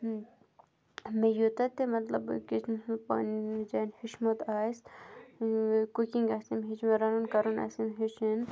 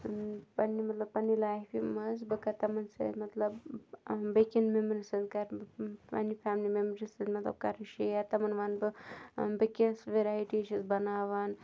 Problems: none marked